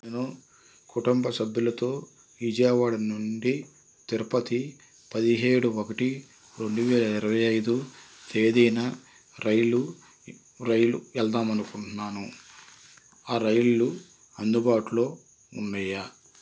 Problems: constant background noise